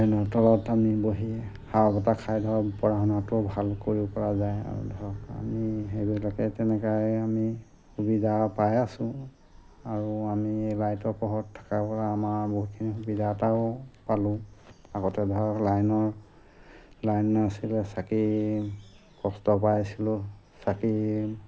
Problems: background sounds at intervals